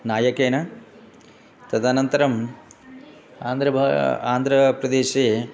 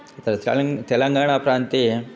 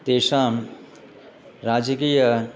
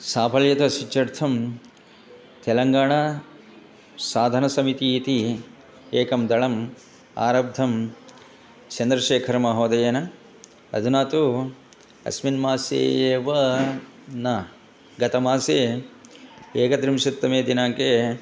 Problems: constant background noise, continuous background conversations